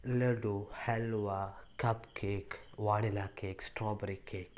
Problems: low volume